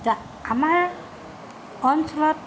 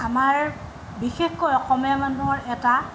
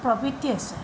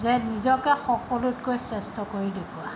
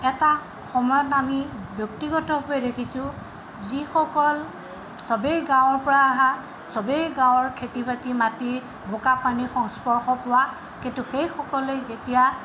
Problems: background sounds at intervals